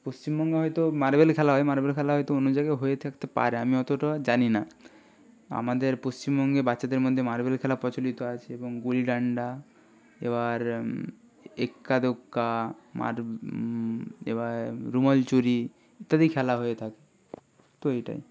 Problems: none marked